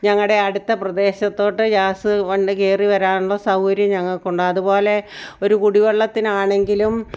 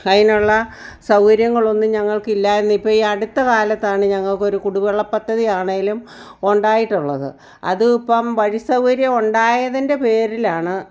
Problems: none marked